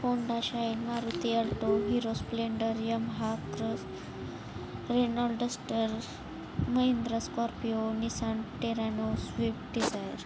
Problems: none marked